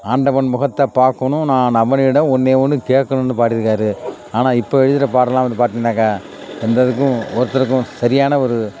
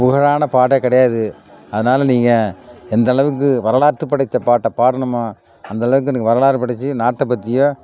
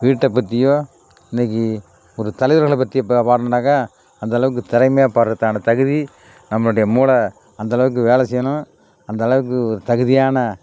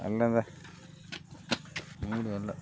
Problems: constant background noise